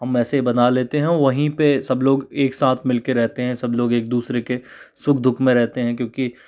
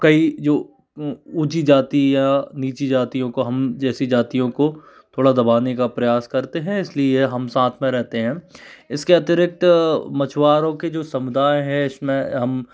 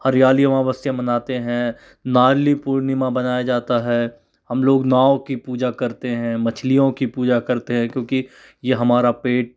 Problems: none marked